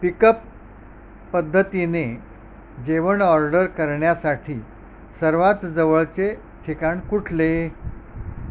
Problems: background sounds at intervals